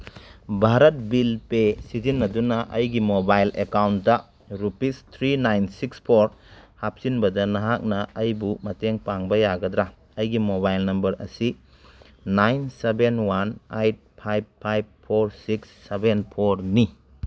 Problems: none marked